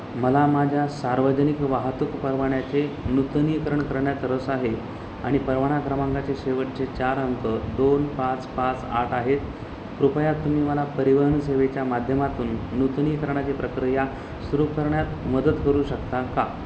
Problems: constant background noise